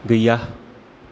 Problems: constant background noise